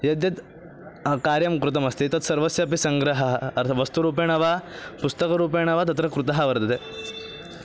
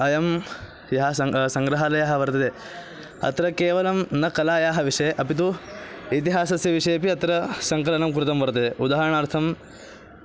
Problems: none marked